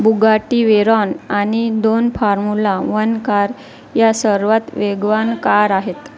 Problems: constant background noise, continuous background conversations